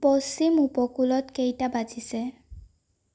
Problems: none marked